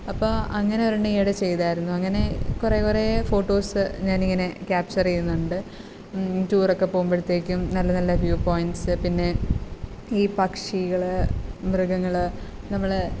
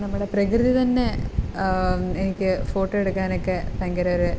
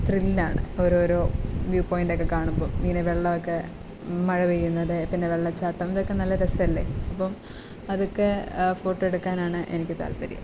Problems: constant background noise